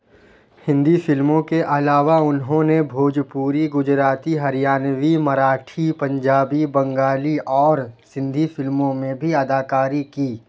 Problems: none marked